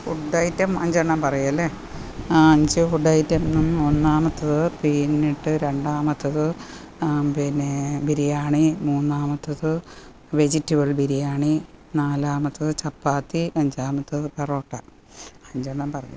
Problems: constant background noise